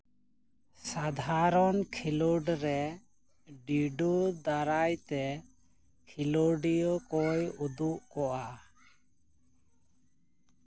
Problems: background conversations at intervals